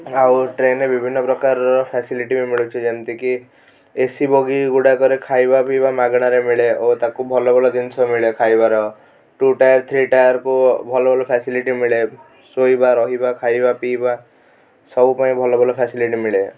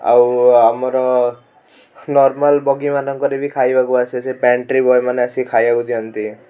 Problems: none marked